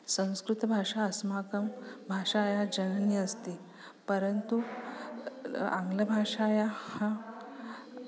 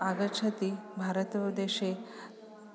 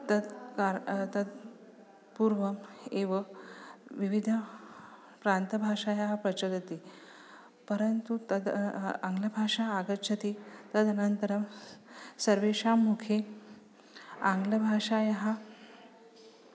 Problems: none marked